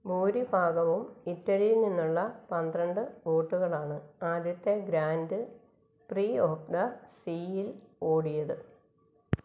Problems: low volume